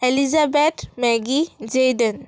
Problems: none marked